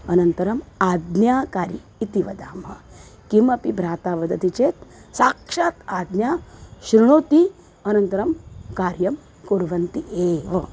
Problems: constant background noise